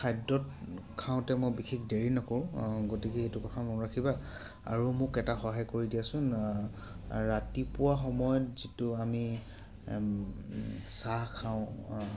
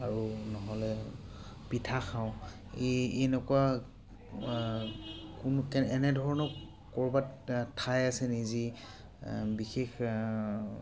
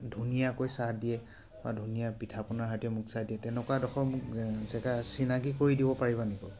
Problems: background sounds at intervals